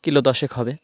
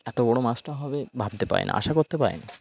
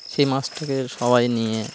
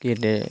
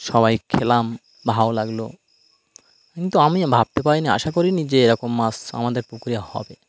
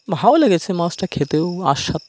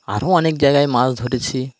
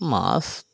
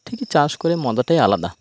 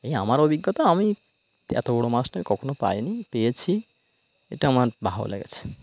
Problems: none marked